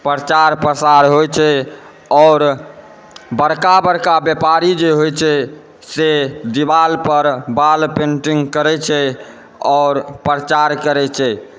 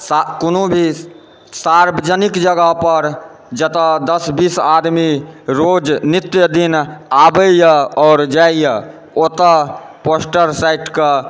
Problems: background conversations at intervals